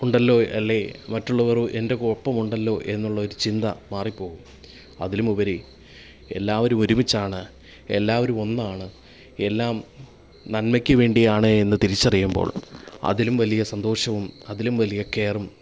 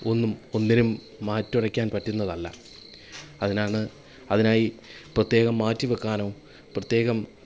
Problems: background sounds at intervals